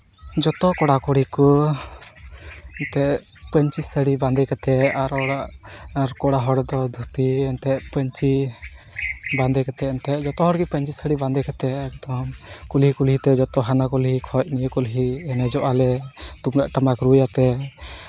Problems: constant background noise, background conversations at intervals